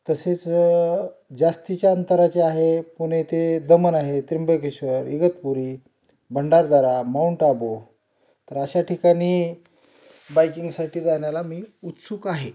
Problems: none marked